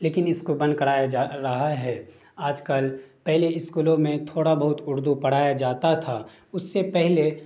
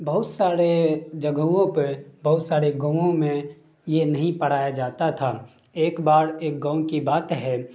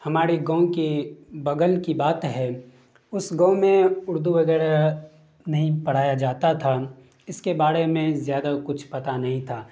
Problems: none marked